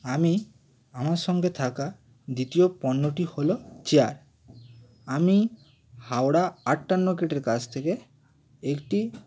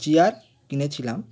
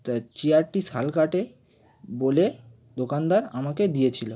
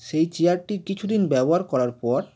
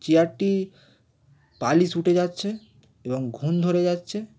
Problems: constant background noise